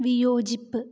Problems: low volume